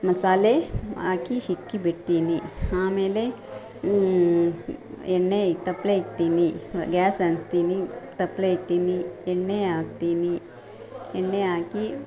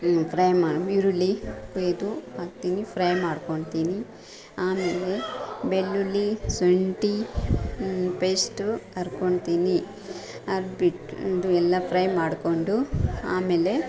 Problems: background sounds at intervals, background conversations at intervals